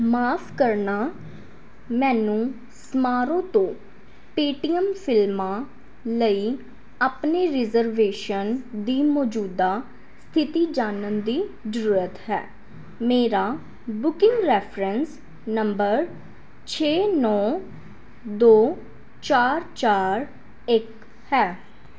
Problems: background sounds at intervals